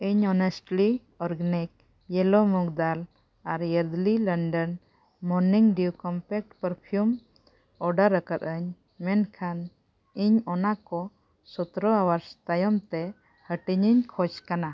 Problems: none marked